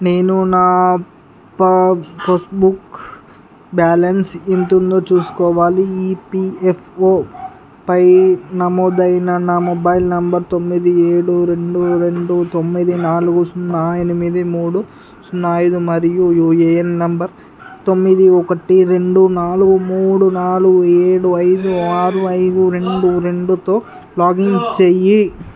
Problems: constant background noise, background conversations at intervals